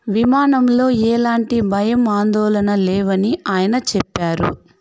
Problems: background sounds at intervals